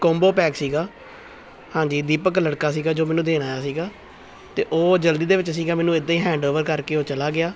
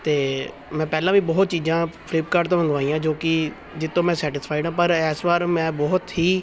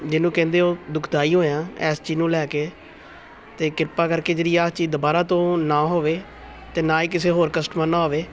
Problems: background sounds at intervals